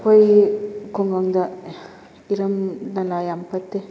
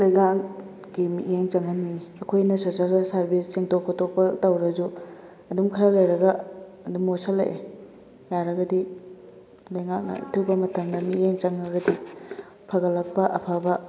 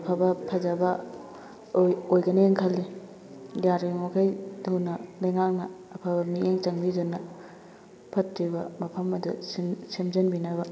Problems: constant background noise